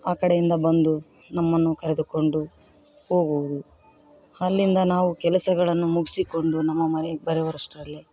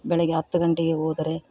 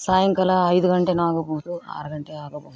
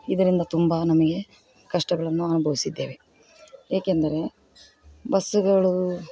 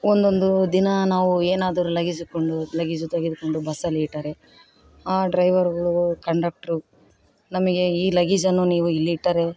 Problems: none marked